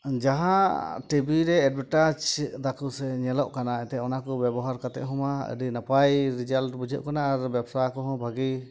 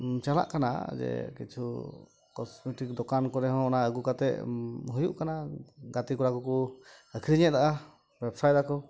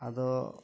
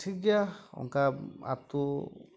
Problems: background sounds at intervals